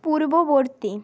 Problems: constant background noise